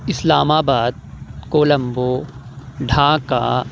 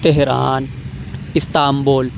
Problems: none marked